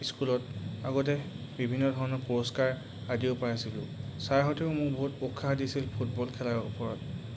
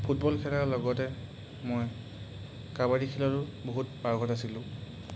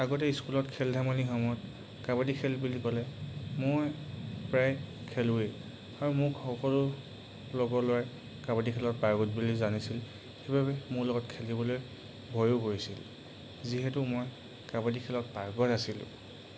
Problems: background sounds at intervals